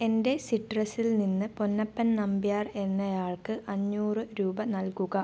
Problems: none marked